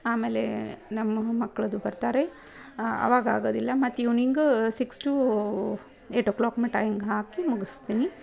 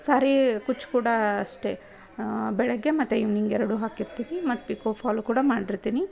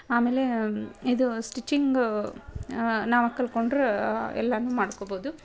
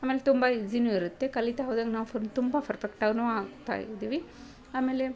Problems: none marked